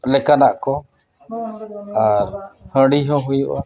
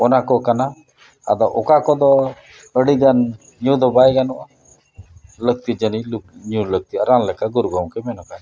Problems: background conversations at intervals